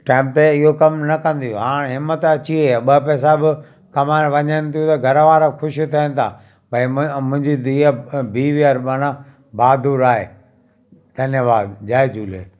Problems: constant background noise, echo